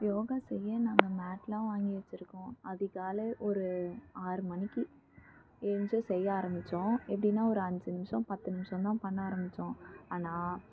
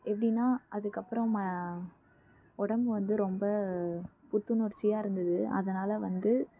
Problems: background sounds at intervals